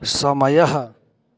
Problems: none marked